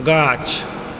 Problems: background sounds at intervals